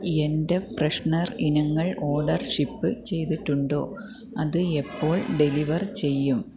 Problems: low volume